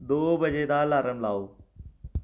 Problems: echo